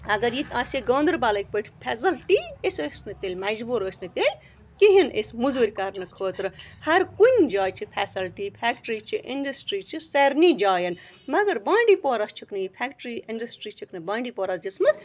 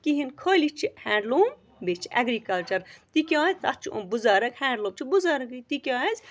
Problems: constant background noise